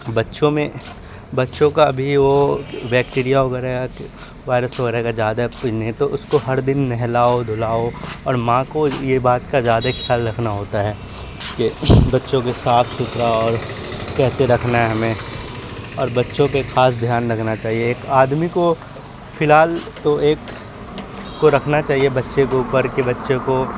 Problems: constant background noise